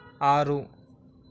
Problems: constant background noise